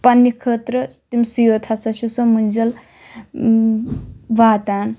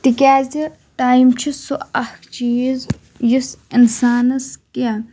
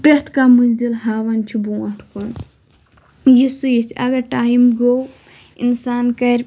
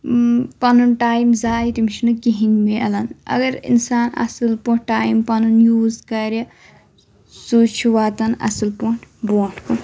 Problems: none marked